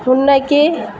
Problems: constant background noise